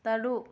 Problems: low volume